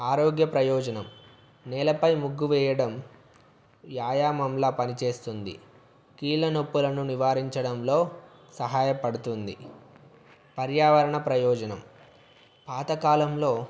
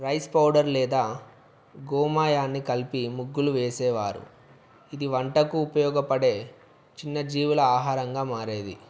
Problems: constant background noise